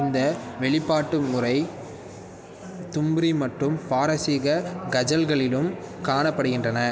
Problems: none marked